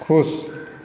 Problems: none marked